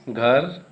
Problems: none marked